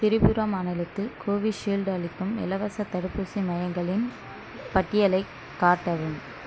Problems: background sounds at intervals